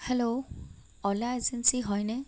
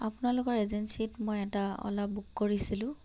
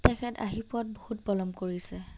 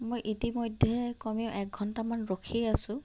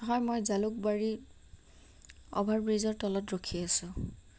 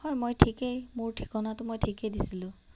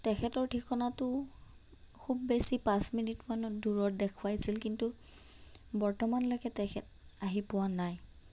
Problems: none marked